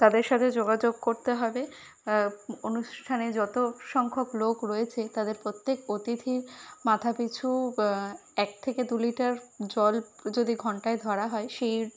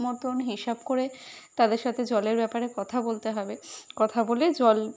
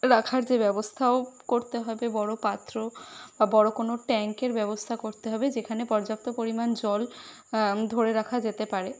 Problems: constant background noise